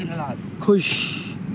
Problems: none marked